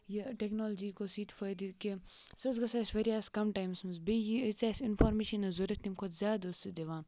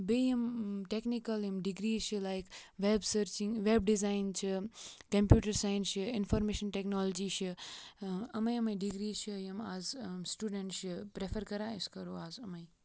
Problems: background sounds at intervals